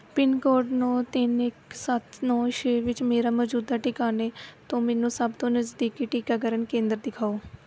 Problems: background sounds at intervals